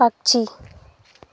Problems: none marked